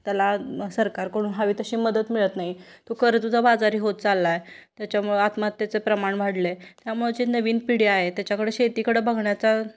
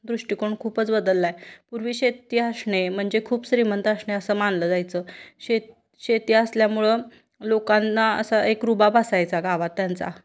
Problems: constant background noise, background conversations at intervals